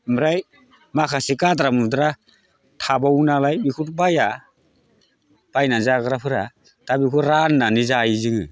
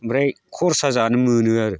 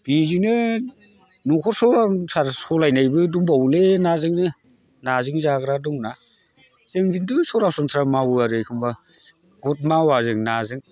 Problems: constant background noise